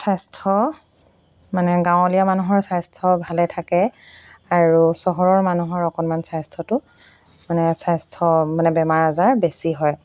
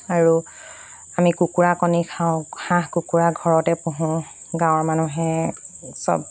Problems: constant background noise